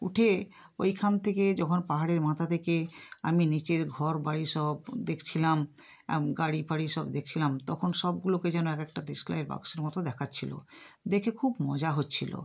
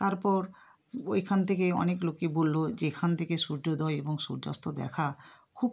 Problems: background sounds at intervals